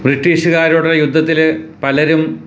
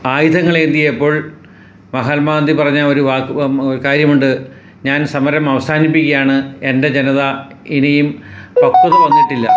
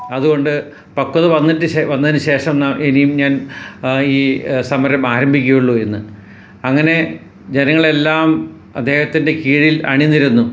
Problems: background sounds at intervals